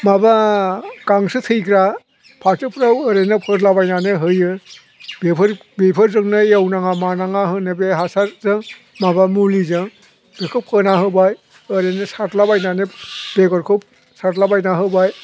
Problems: constant background noise